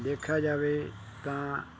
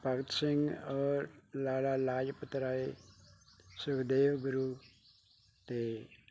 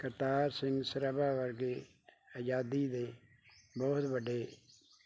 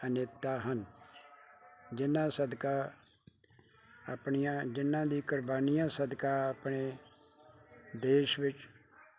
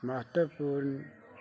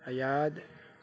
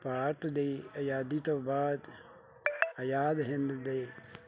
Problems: none marked